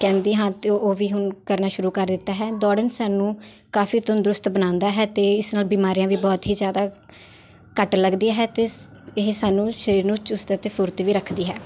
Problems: constant background noise